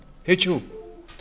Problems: constant background noise